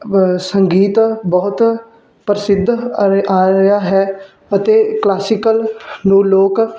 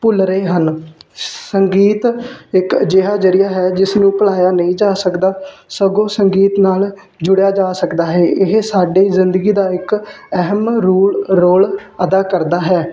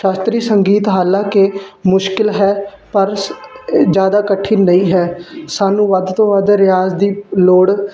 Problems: constant background noise